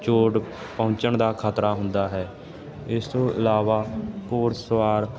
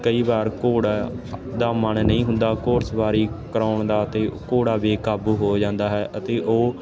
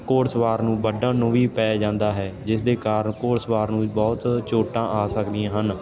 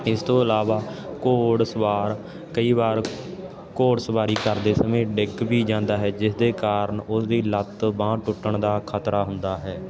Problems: constant background noise